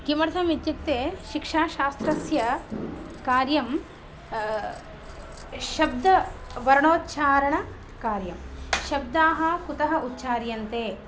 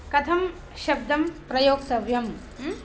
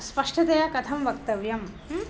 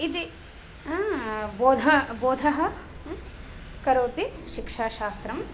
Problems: background sounds at intervals